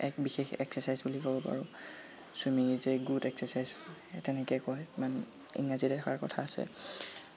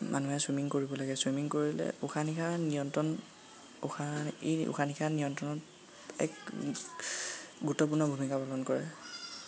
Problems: constant background noise, background conversations at intervals